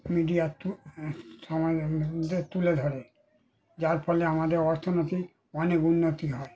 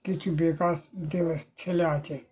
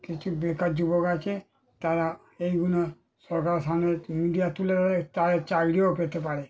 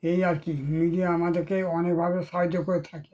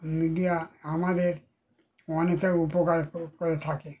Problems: none marked